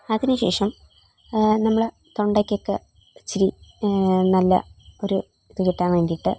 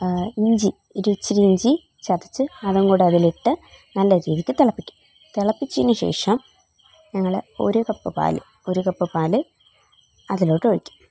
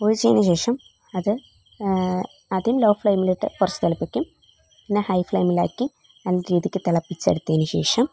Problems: none marked